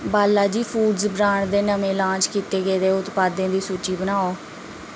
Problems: none marked